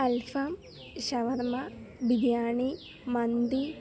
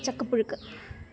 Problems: background sounds at intervals